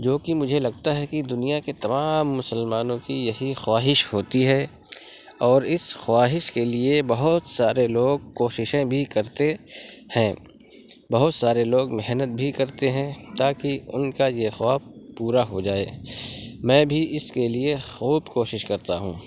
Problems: constant background noise